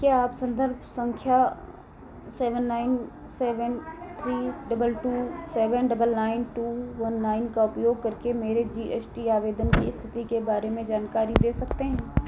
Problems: none marked